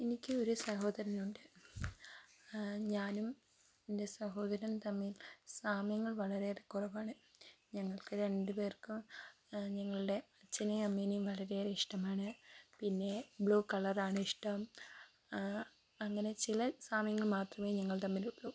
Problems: low volume